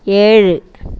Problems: none marked